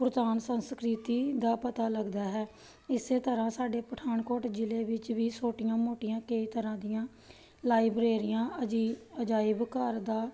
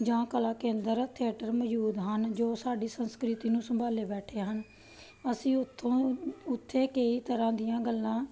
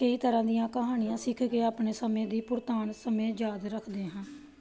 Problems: background sounds at intervals